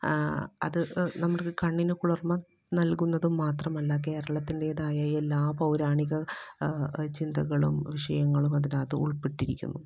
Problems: background sounds at intervals, low volume